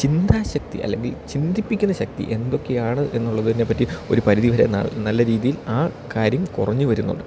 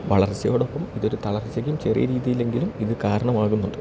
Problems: none marked